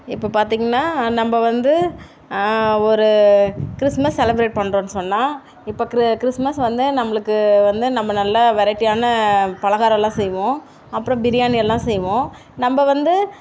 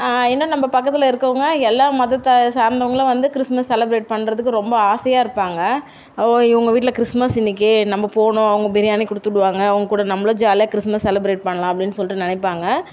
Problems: none marked